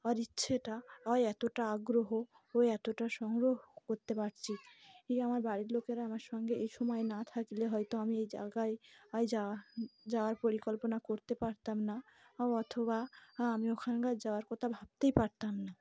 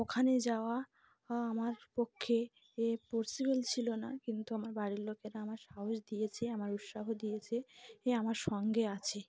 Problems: constant background noise, background conversations at intervals